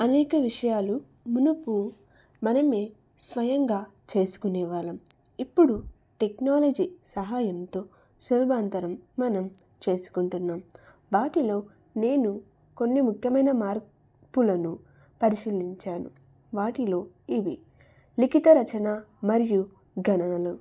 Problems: none marked